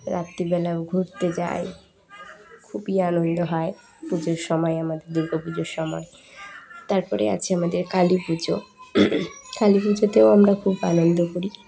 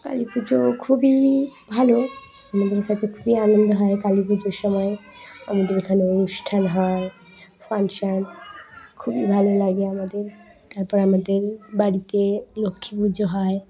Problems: continuous background conversations